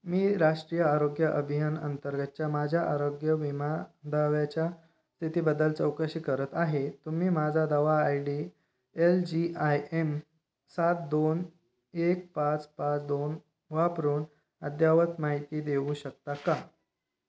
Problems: none marked